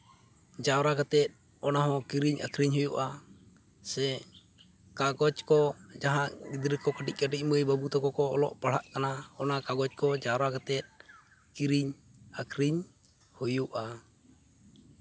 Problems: background sounds at intervals, background conversations at intervals